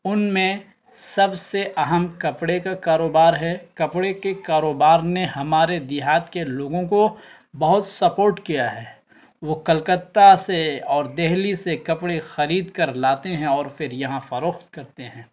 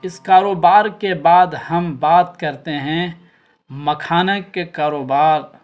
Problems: constant background noise